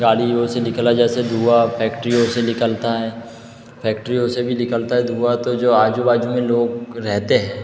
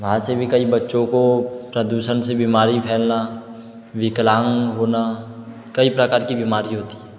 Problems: background sounds at intervals